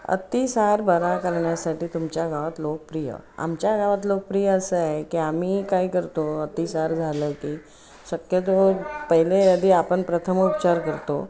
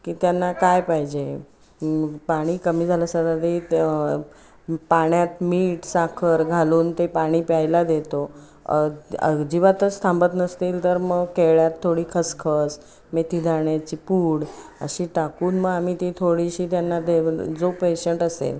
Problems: none marked